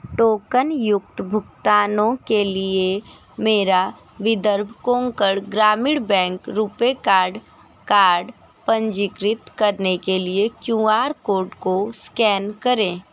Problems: constant background noise